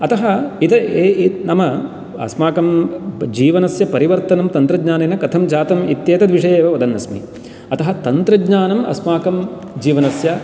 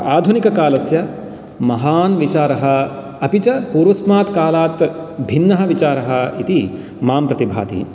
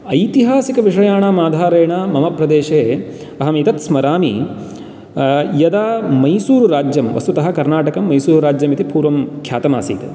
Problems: background sounds at intervals